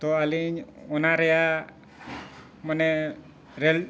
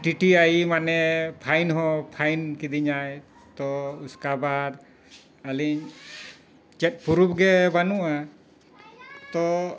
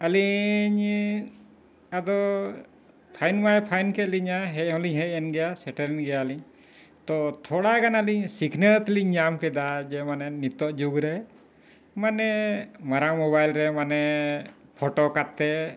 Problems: background sounds at intervals, background conversations at intervals